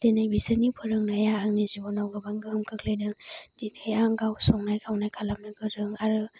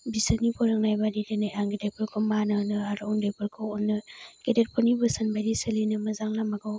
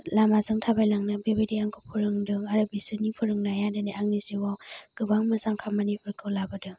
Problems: low volume